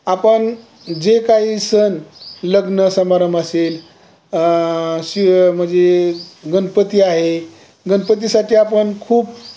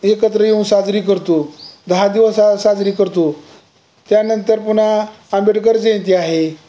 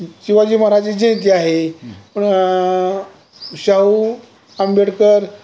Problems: none marked